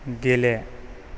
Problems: none marked